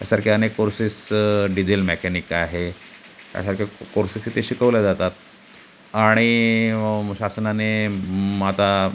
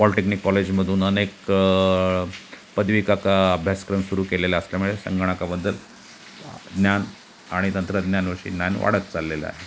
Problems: constant background noise